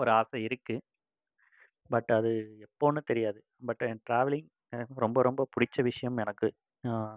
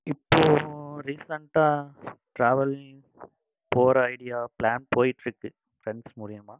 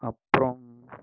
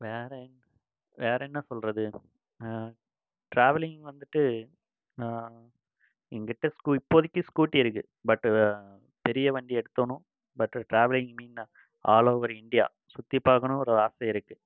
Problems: none marked